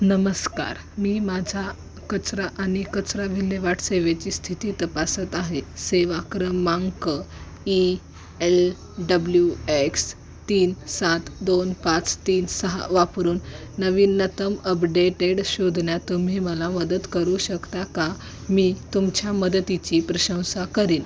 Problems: constant background noise, background conversations at intervals